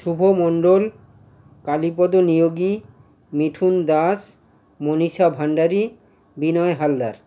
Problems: constant background noise